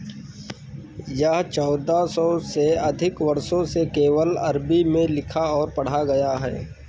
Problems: constant background noise